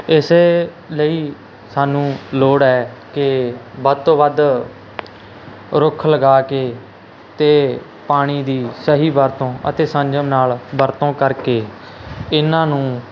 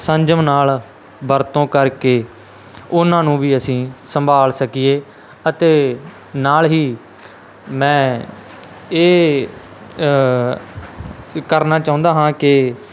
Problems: constant background noise